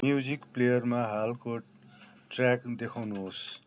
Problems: none marked